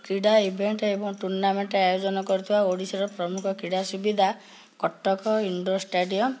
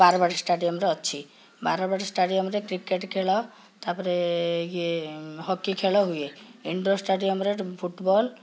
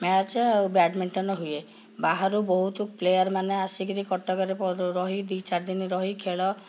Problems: background conversations at intervals